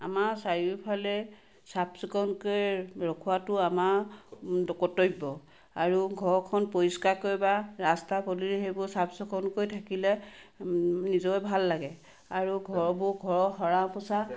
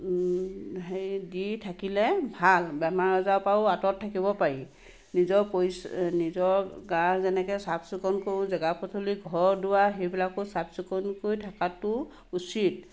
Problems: background sounds at intervals, background conversations at intervals